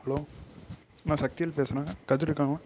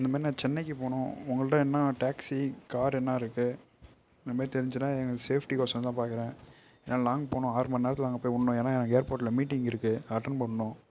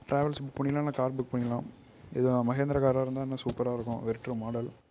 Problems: low volume